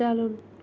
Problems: none marked